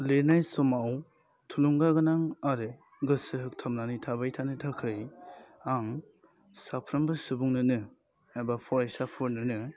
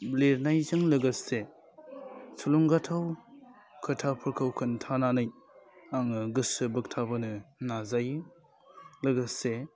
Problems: constant background noise